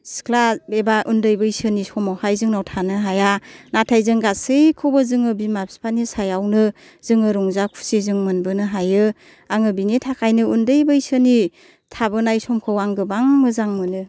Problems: none marked